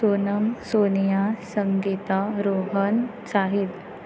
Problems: constant background noise